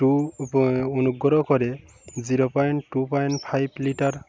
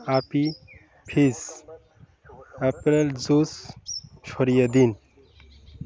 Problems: none marked